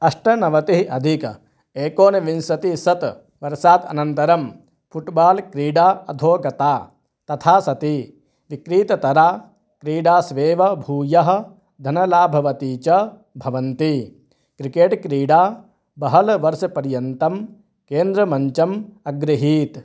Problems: none marked